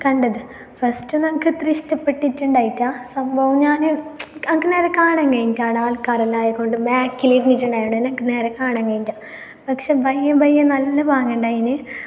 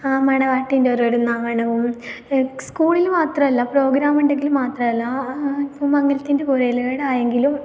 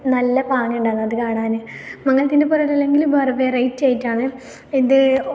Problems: none marked